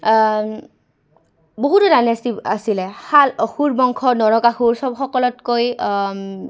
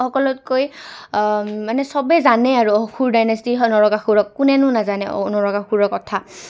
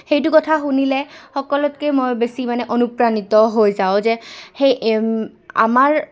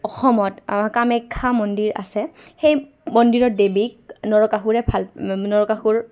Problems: background sounds at intervals, background conversations at intervals